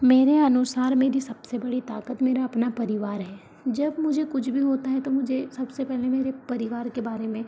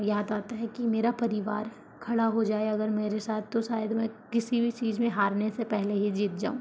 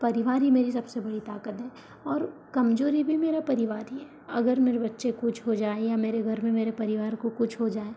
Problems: none marked